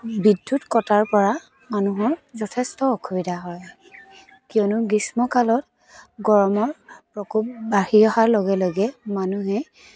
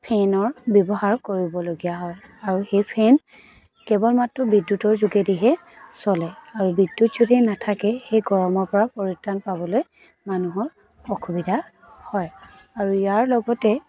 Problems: constant background noise, continuous background conversations